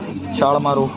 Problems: constant background noise